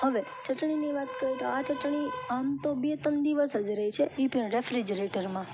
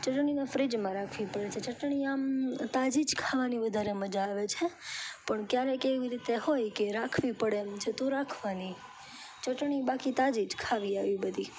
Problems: none marked